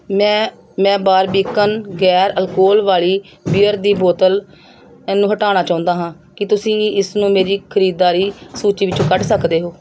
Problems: background sounds at intervals